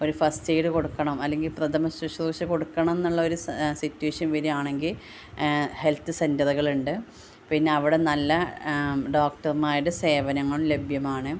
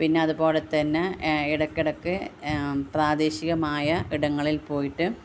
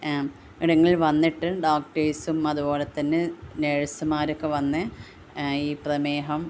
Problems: constant background noise